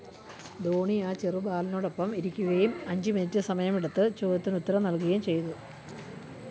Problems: none marked